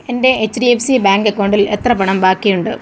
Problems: constant background noise